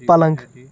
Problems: constant background noise